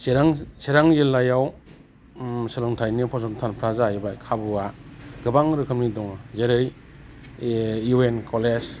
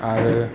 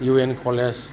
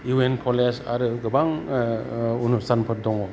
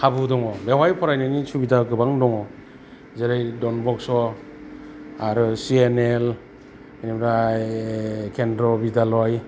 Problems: constant background noise